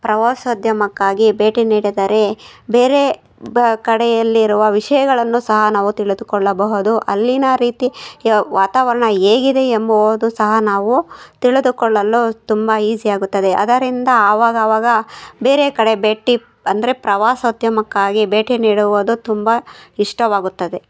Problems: none marked